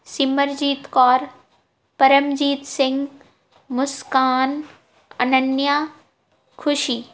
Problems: background sounds at intervals